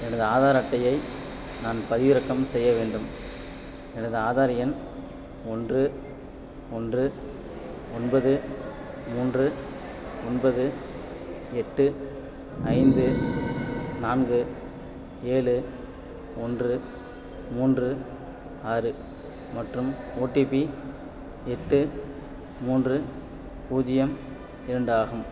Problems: constant background noise